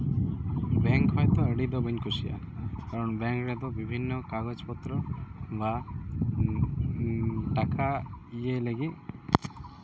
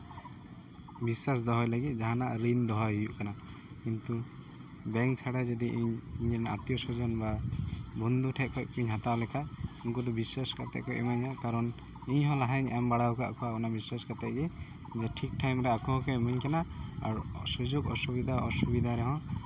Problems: constant background noise